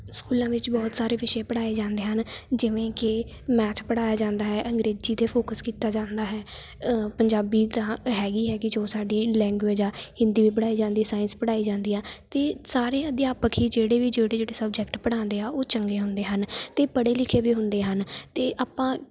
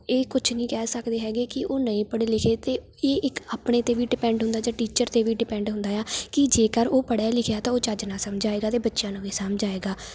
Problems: background sounds at intervals